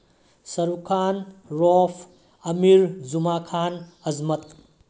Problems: low volume